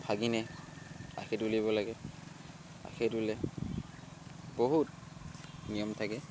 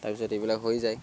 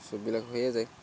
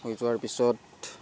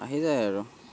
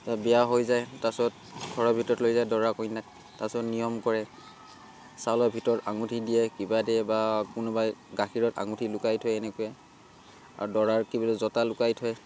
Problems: constant background noise